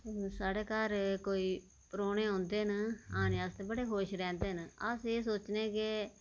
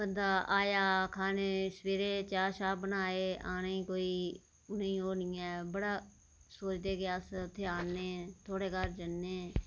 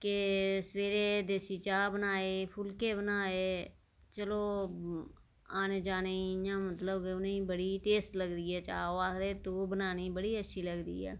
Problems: none marked